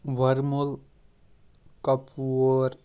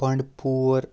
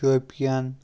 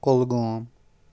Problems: background sounds at intervals